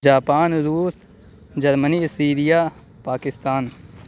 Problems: background sounds at intervals